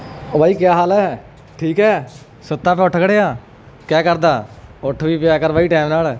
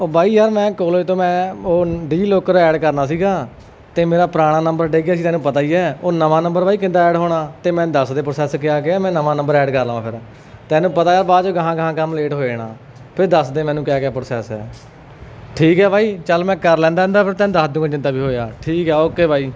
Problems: background sounds at intervals